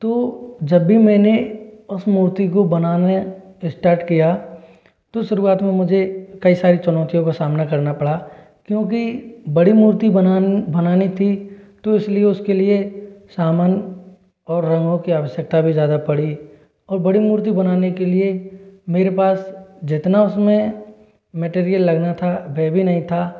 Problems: echo